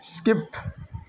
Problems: constant background noise